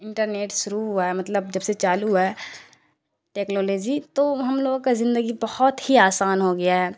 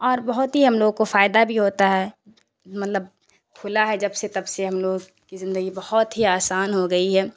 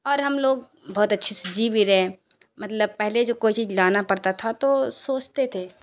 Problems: constant background noise